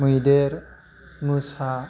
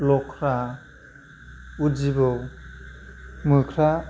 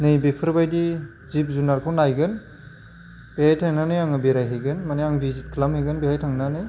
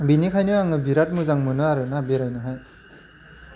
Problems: constant background noise